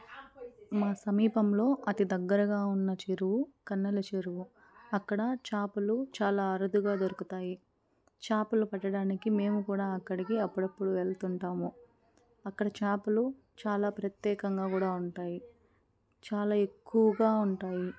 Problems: background conversations at intervals